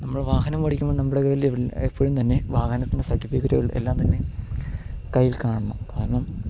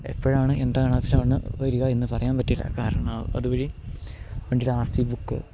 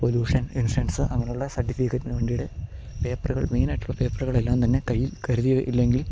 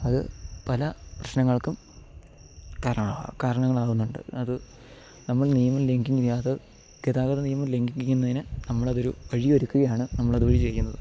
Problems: none marked